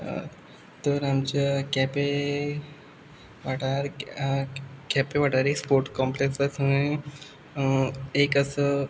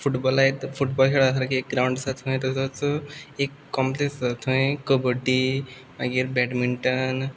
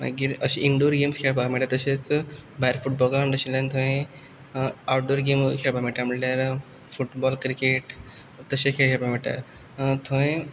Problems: background sounds at intervals